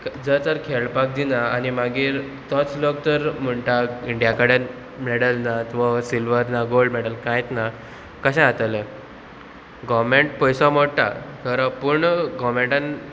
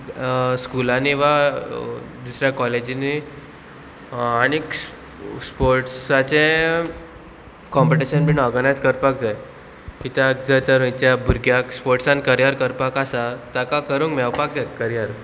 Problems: none marked